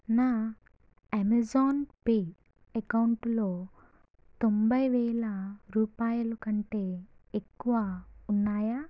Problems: low volume